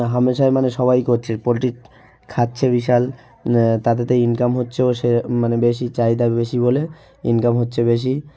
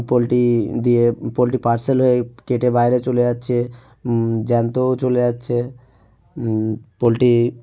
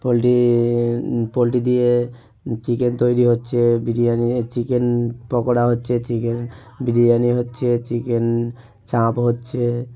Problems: background sounds at intervals, continuous background conversations